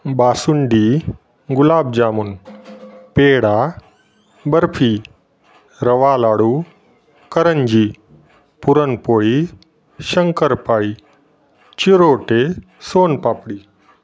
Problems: none marked